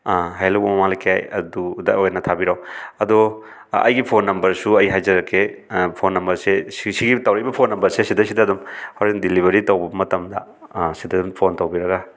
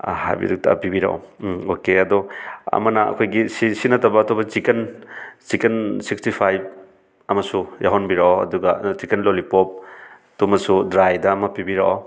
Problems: none marked